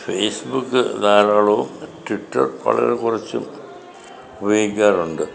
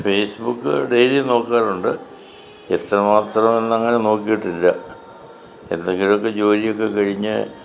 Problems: background sounds at intervals